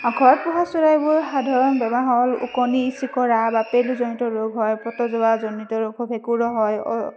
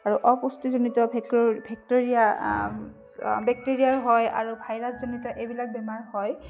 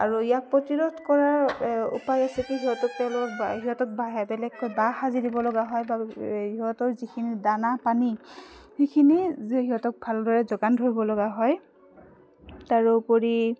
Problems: none marked